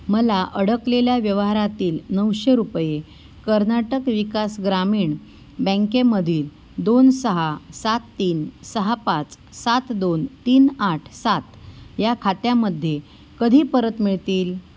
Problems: background sounds at intervals